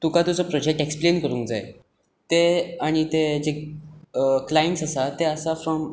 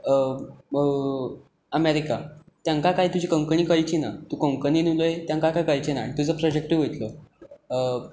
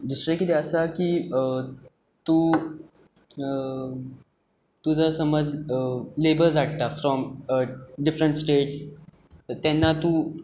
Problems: background sounds at intervals